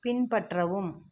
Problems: none marked